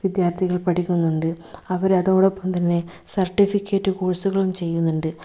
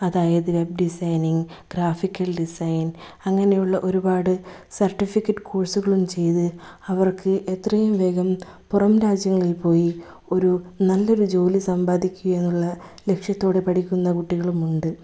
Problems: none marked